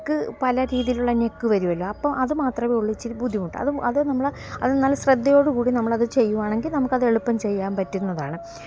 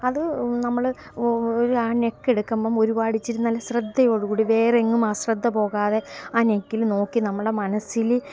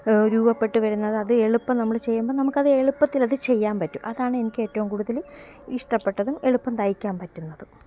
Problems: constant background noise